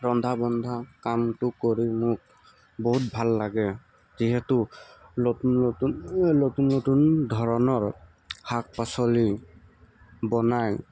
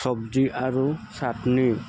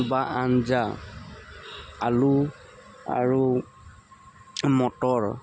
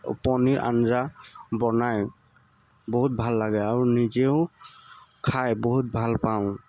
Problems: constant background noise